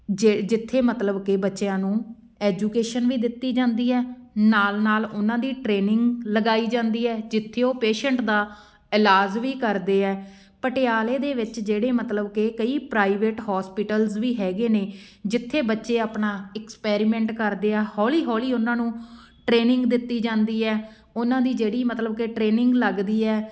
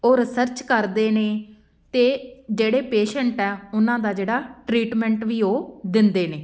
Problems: none marked